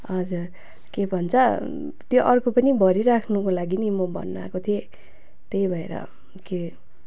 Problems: none marked